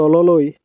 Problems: background sounds at intervals